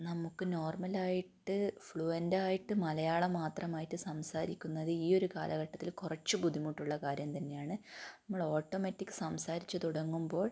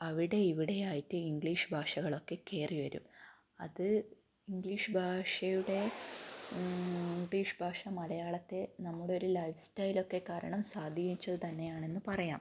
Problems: low volume